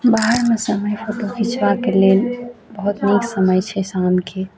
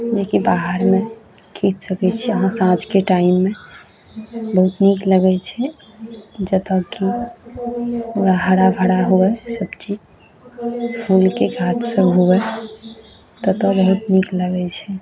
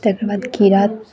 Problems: background sounds at intervals